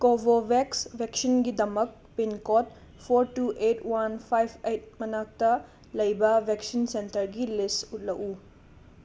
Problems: constant background noise